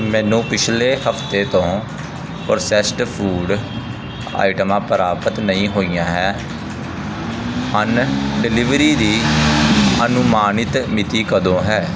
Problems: constant background noise